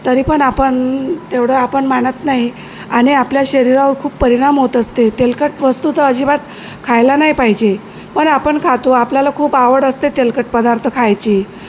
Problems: none marked